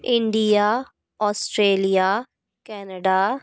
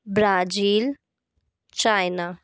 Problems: background conversations at intervals